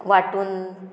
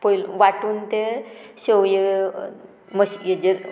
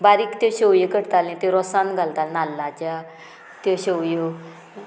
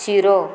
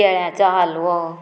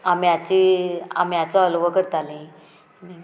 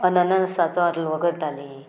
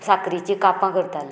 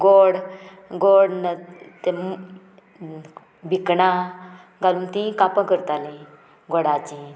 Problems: none marked